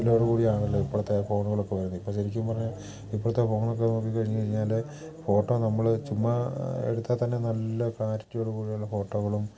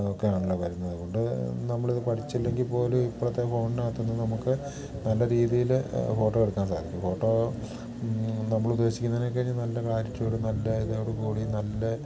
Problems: none marked